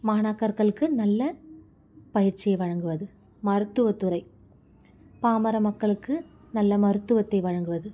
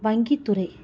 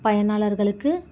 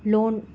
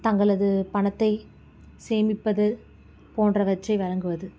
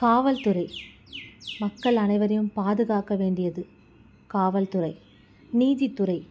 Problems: constant background noise